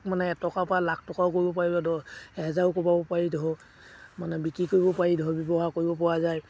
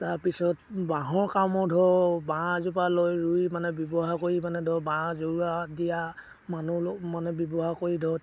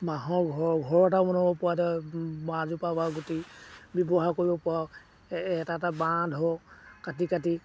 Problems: background sounds at intervals